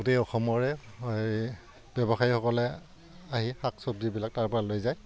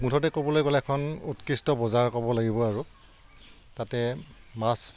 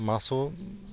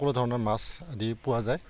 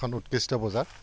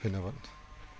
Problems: none marked